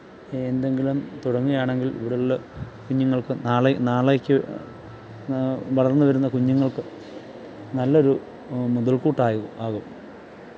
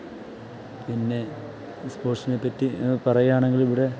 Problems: background sounds at intervals, low volume